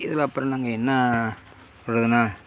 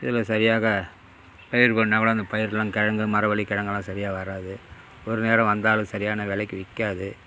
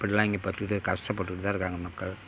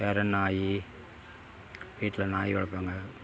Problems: constant background noise